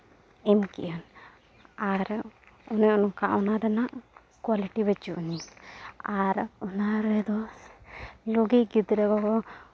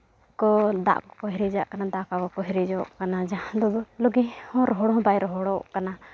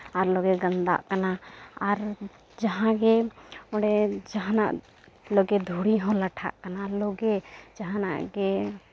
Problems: none marked